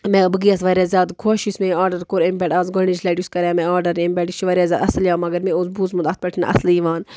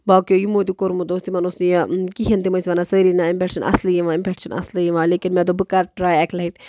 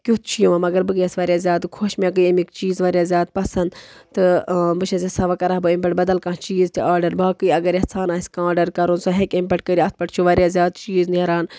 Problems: background sounds at intervals